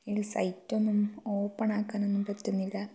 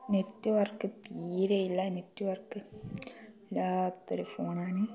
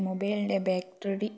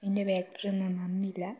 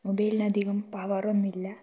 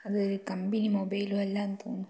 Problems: low volume